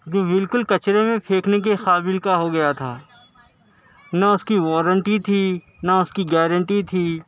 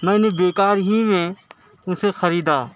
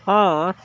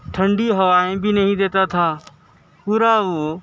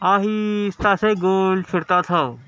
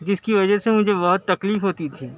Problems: constant background noise, background conversations at intervals